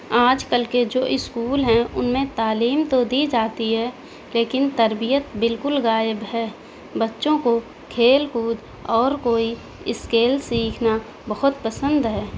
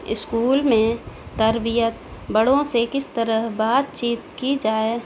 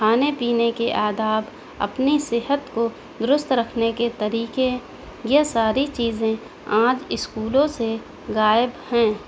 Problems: constant background noise